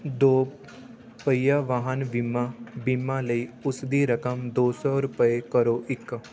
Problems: constant background noise, background conversations at intervals